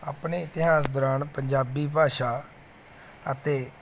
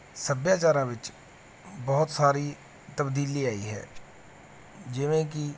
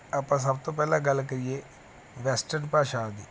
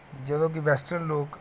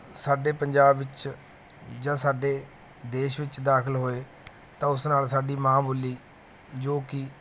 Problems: none marked